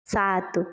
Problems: none marked